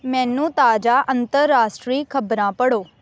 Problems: background sounds at intervals